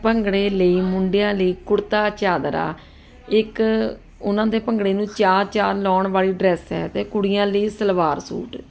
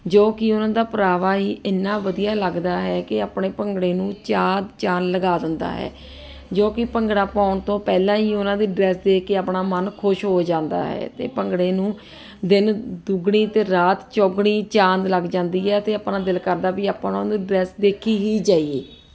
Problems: constant background noise